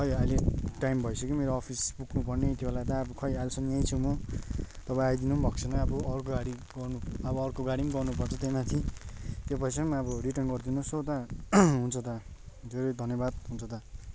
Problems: constant background noise